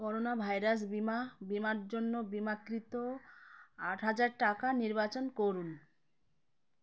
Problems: constant background noise